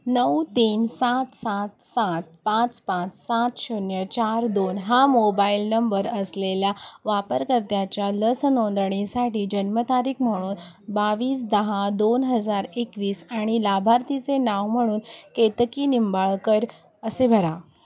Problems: constant background noise, background conversations at intervals